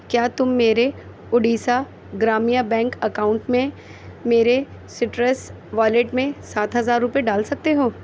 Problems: constant background noise